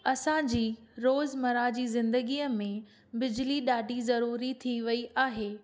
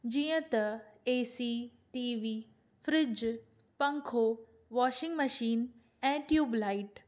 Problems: none marked